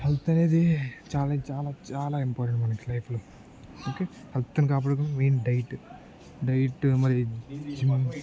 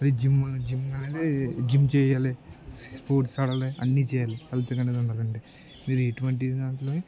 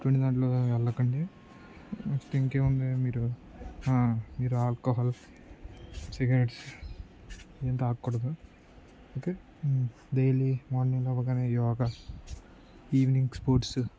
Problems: low volume